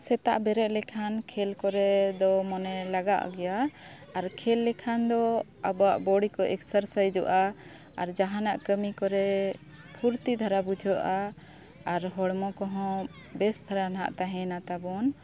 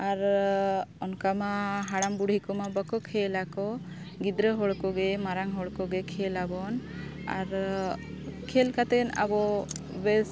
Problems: constant background noise, continuous background conversations